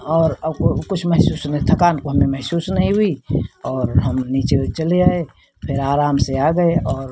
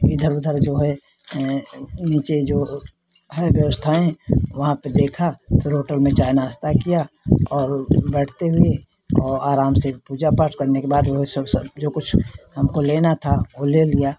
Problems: none marked